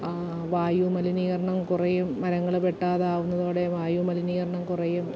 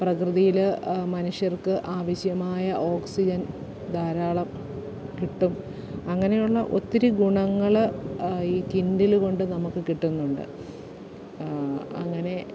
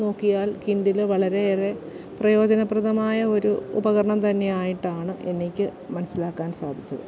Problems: background sounds at intervals